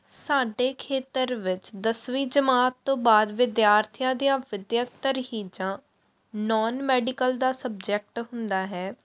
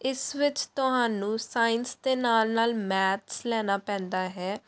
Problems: background sounds at intervals